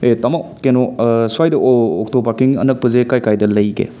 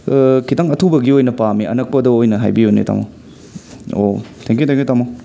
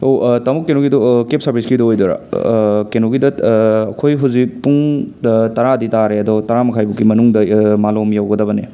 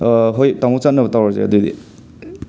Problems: background sounds at intervals